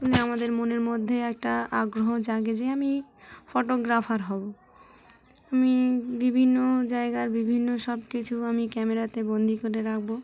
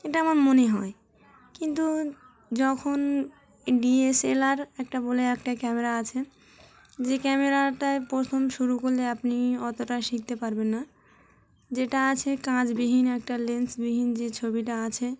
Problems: constant background noise, background conversations at intervals